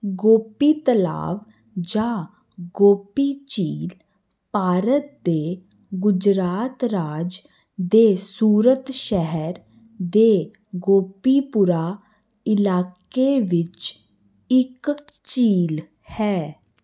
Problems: constant background noise